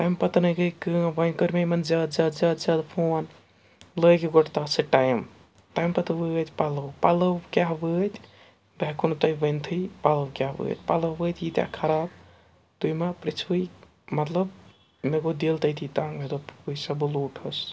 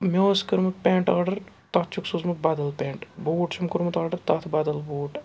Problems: background sounds at intervals